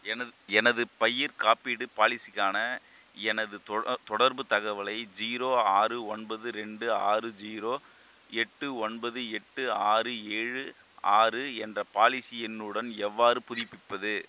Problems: constant background noise